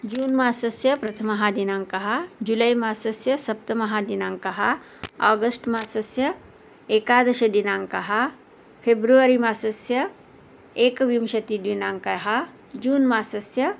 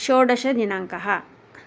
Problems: none marked